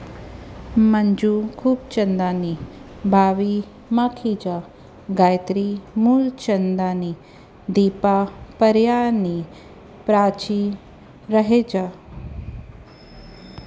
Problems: constant background noise